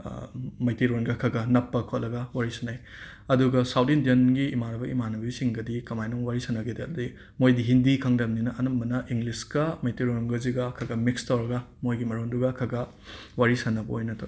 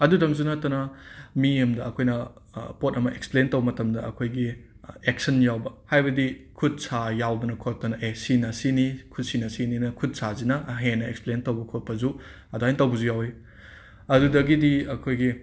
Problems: background sounds at intervals